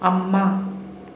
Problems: constant background noise, echo